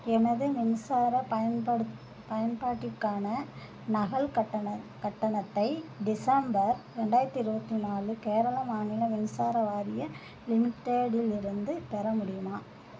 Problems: none marked